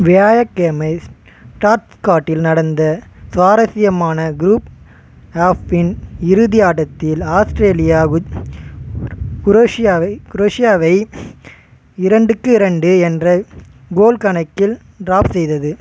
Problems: constant background noise, background conversations at intervals